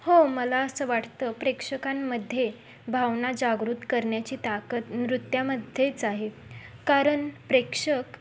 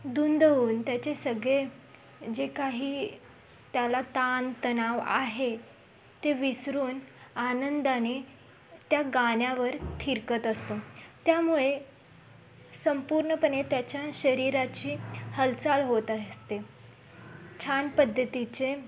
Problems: constant background noise, background conversations at intervals